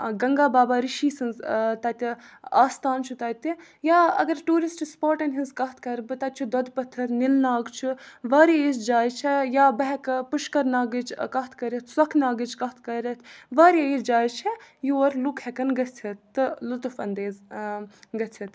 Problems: background sounds at intervals